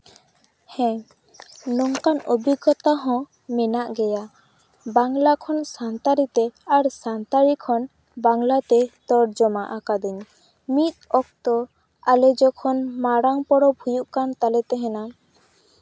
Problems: background sounds at intervals